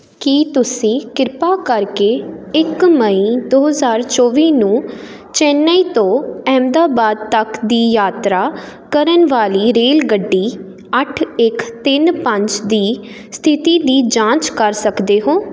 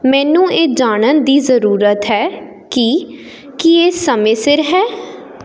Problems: constant background noise